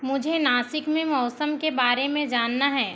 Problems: none marked